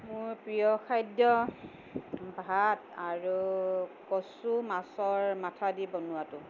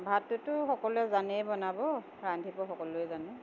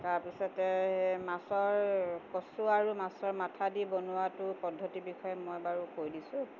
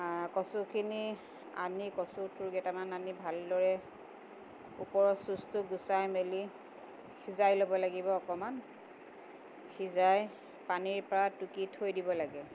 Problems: constant background noise